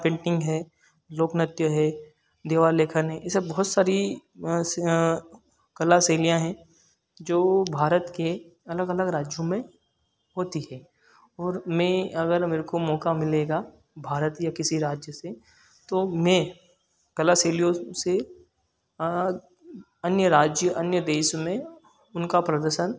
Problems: none marked